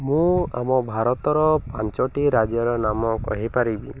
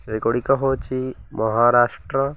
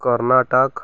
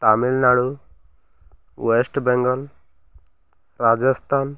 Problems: none marked